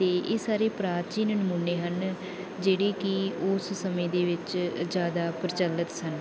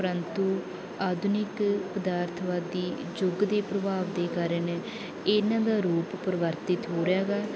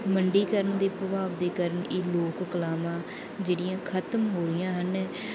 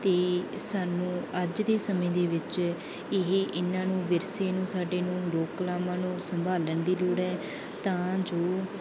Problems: background conversations at intervals